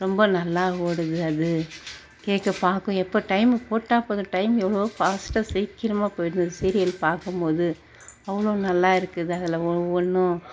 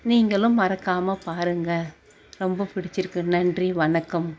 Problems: background sounds at intervals